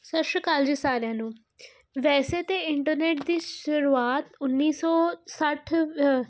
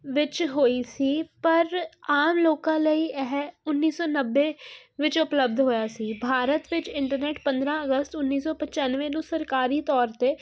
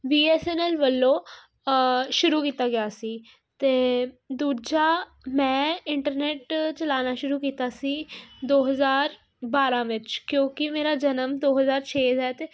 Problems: none marked